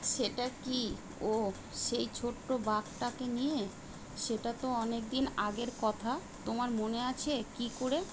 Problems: constant background noise